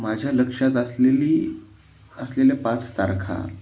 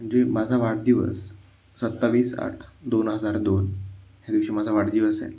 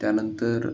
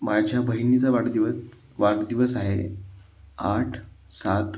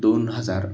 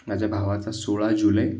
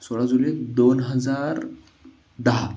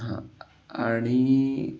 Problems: constant background noise